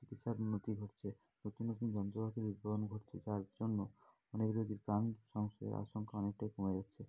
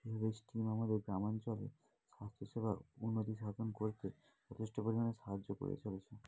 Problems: continuous background conversations, low volume